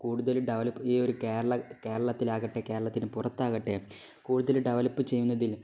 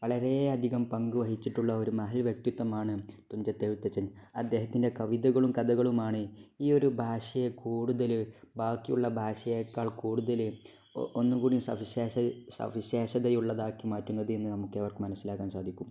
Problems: none marked